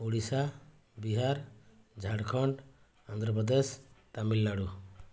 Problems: none marked